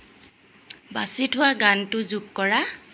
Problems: constant background noise